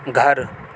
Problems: constant background noise